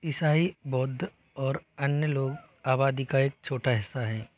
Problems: none marked